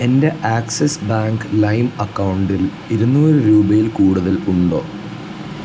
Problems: constant background noise, low volume